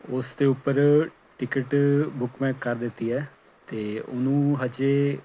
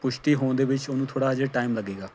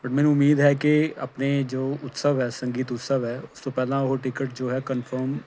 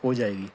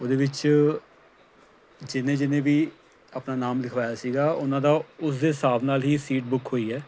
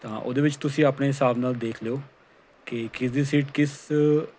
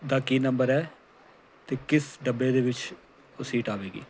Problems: background sounds at intervals